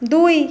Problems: constant background noise